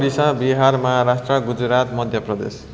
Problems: background conversations at intervals